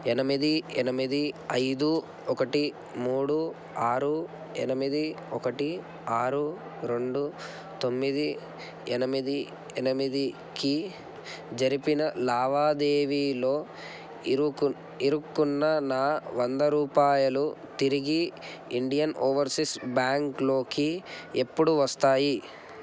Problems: constant background noise